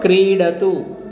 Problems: constant background noise